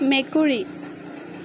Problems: constant background noise